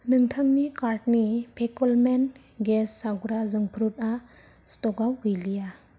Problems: low volume